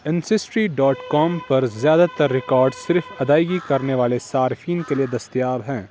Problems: constant background noise